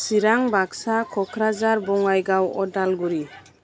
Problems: constant background noise